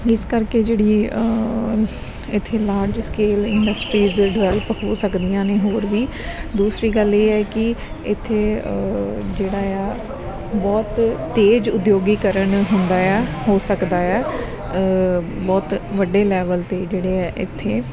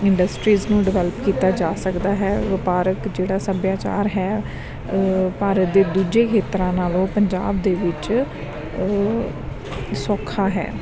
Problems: background sounds at intervals